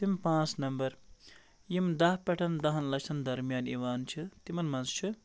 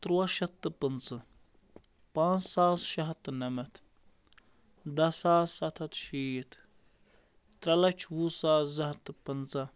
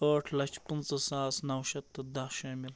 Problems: constant background noise